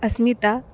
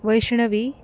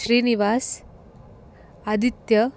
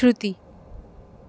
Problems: none marked